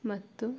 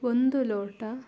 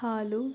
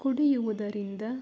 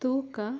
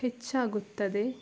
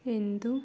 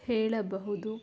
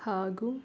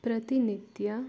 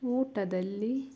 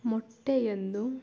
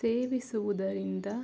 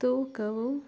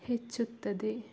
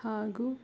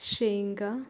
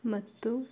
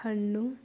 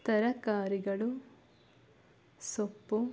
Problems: background sounds at intervals